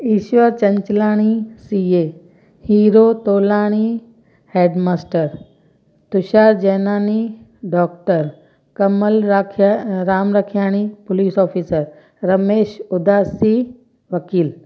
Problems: constant background noise, echo